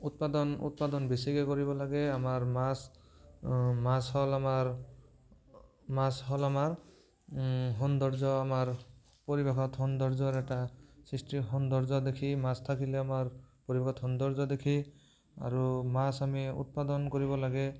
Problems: none marked